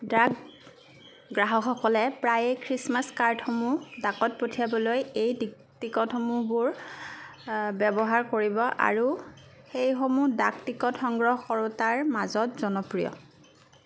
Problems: background sounds at intervals